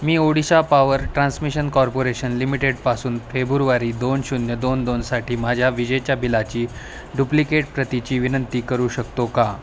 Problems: none marked